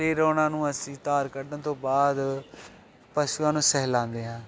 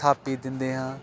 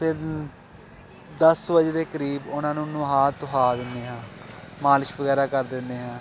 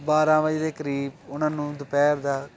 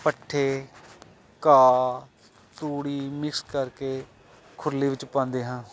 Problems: none marked